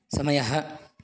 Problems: constant background noise